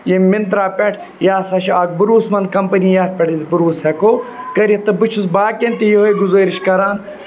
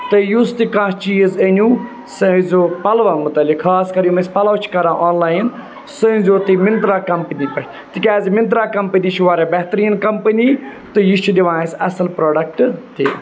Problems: constant background noise